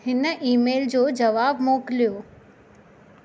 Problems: none marked